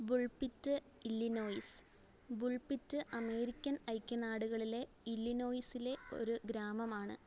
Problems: low volume